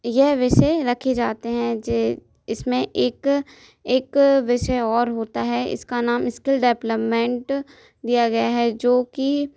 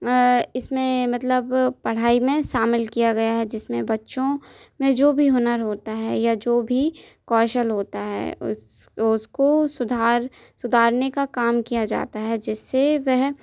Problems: none marked